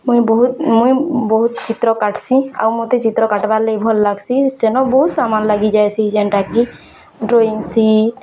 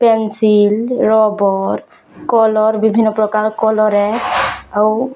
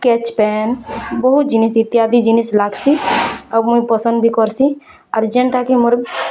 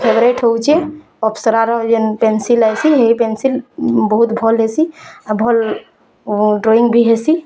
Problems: constant background noise